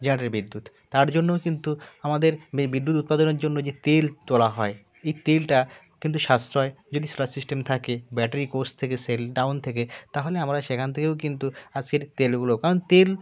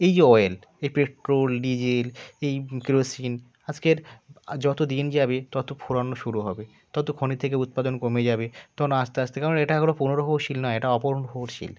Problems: constant background noise, continuous background conversations